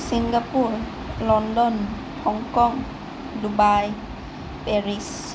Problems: none marked